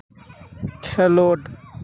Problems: constant background noise, background conversations at intervals